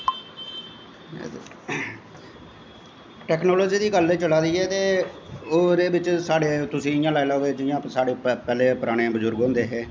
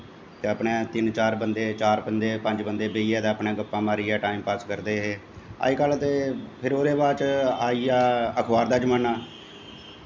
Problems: constant background noise